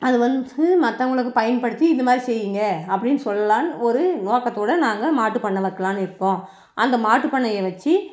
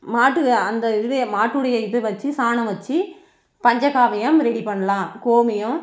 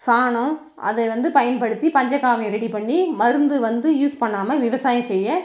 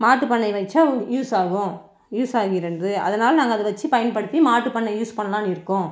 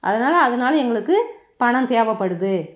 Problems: background conversations at intervals